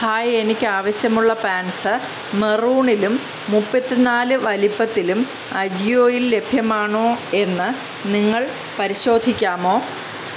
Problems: background conversations at intervals